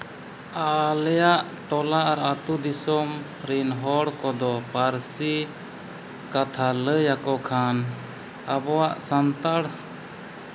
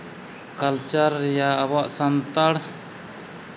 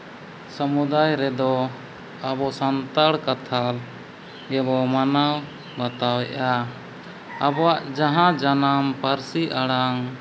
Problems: constant background noise